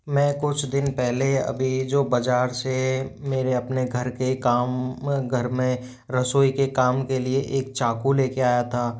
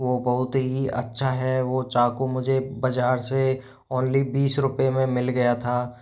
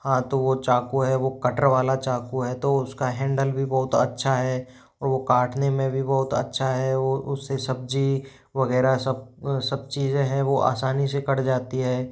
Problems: none marked